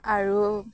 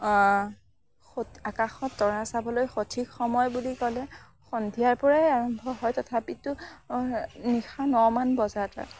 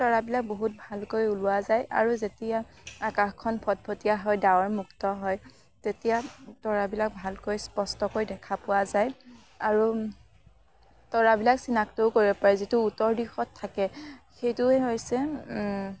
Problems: background sounds at intervals, background conversations at intervals